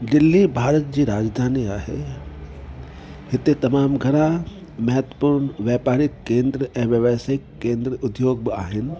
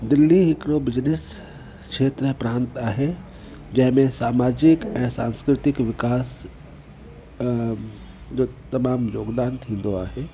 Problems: constant background noise